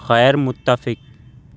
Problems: background sounds at intervals